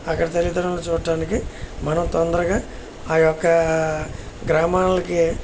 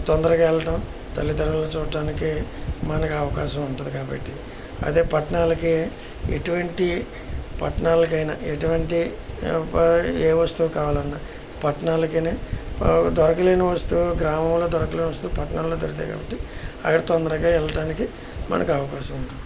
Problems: constant background noise